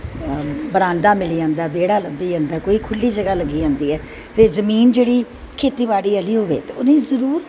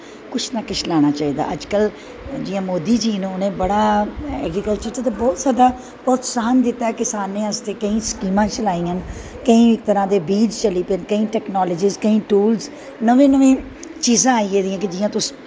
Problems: constant background noise